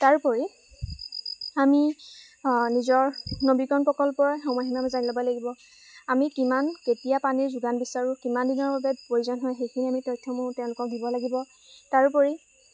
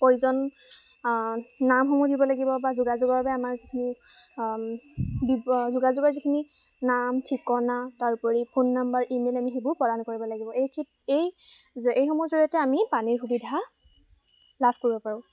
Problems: background sounds at intervals